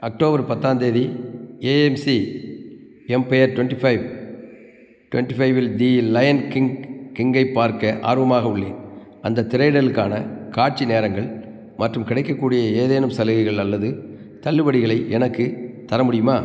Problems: background sounds at intervals